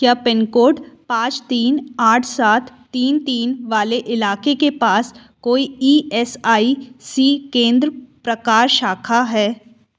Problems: background sounds at intervals